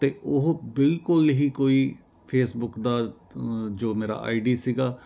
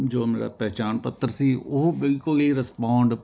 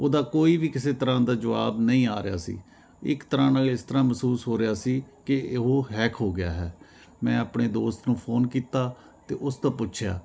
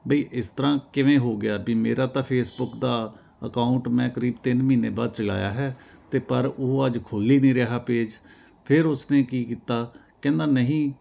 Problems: constant background noise